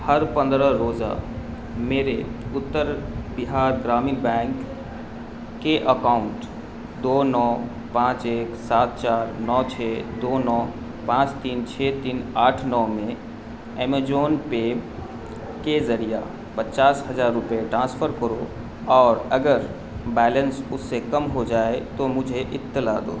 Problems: constant background noise